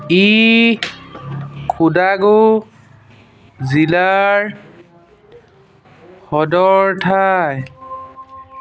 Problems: constant background noise